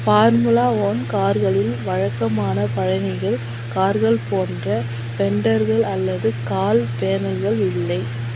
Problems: constant background noise